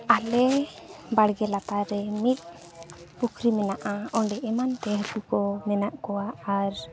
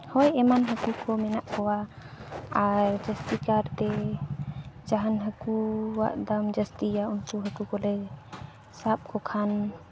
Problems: none marked